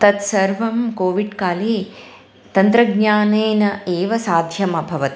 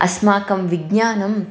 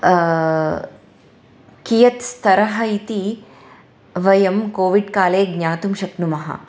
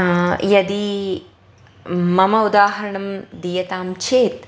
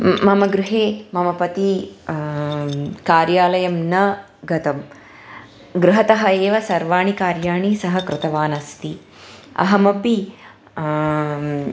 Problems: background sounds at intervals